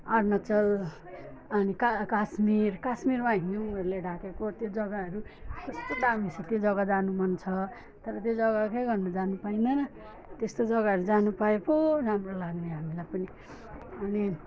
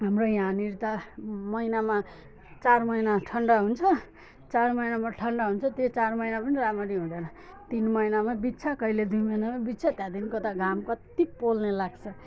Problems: background sounds at intervals, background conversations at intervals, low volume